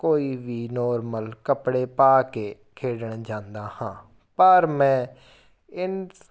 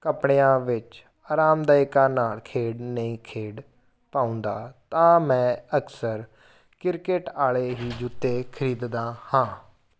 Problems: background sounds at intervals